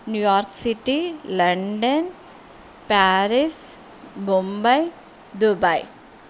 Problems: constant background noise